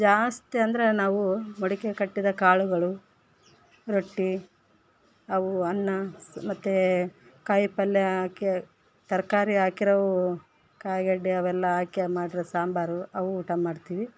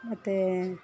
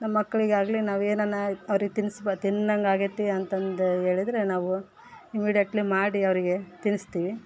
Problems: background sounds at intervals